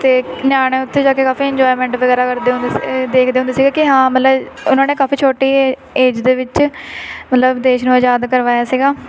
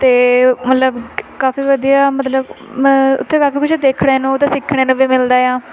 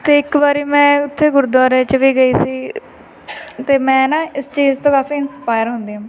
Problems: constant background noise